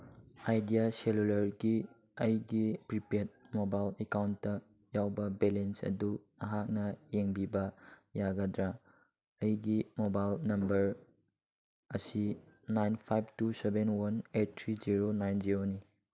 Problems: none marked